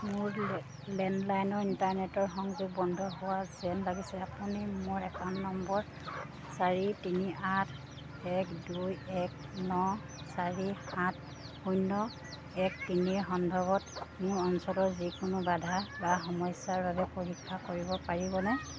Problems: none marked